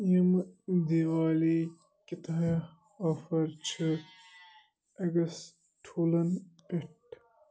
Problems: none marked